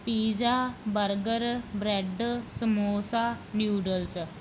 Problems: none marked